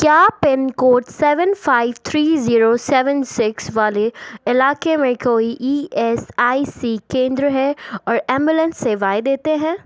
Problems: background sounds at intervals, background conversations at intervals